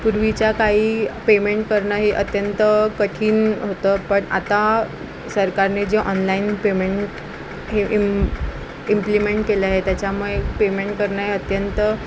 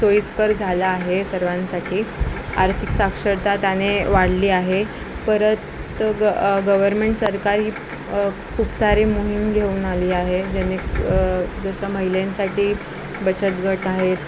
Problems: constant background noise